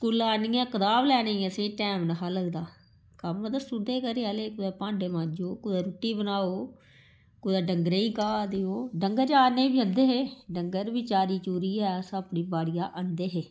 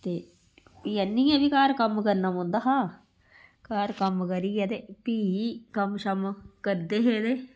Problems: background sounds at intervals